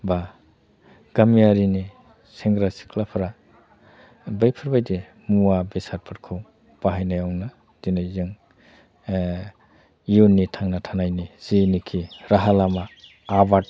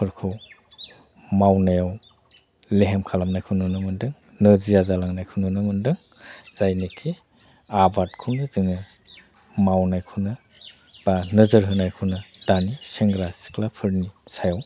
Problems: constant background noise